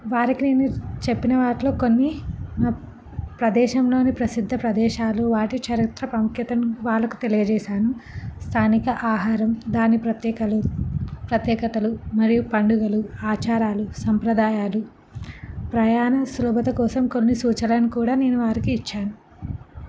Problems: background sounds at intervals